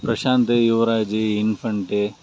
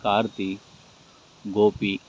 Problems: constant background noise